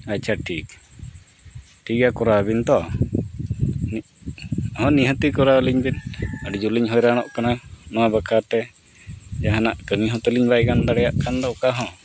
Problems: constant background noise